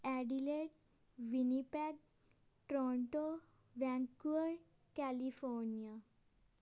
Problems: none marked